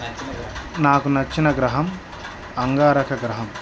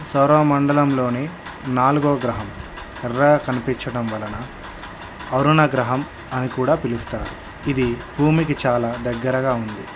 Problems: background sounds at intervals